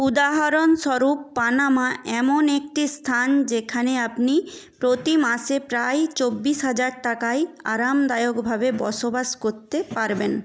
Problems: none marked